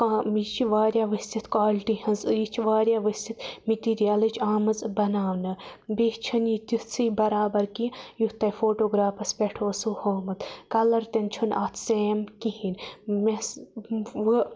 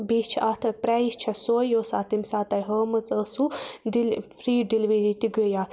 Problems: constant background noise